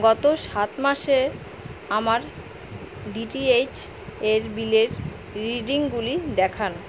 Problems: constant background noise